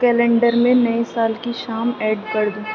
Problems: background sounds at intervals